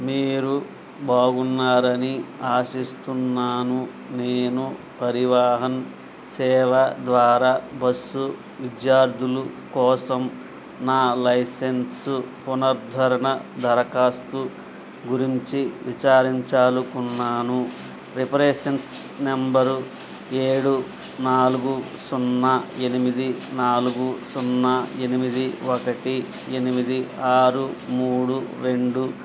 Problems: constant background noise